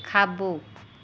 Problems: constant background noise